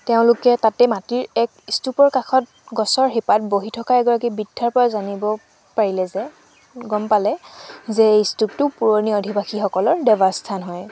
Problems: background sounds at intervals